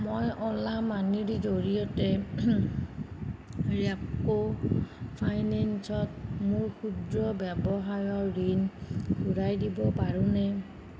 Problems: constant background noise